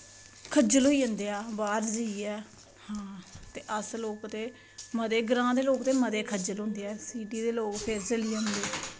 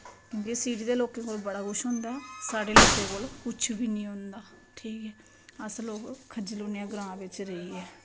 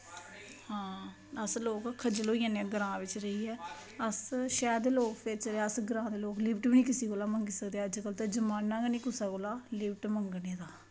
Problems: background sounds at intervals